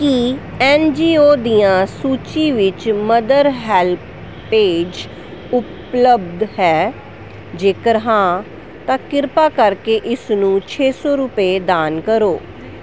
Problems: constant background noise